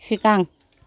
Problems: none marked